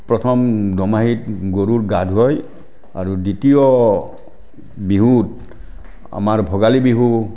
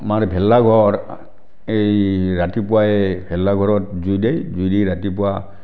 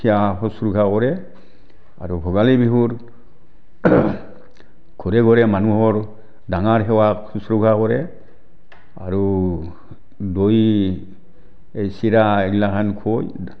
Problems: constant background noise